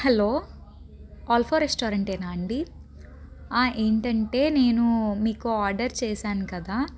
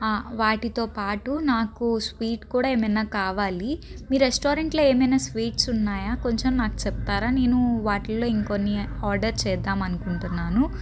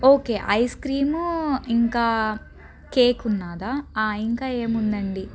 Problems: background conversations at intervals